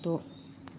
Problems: low volume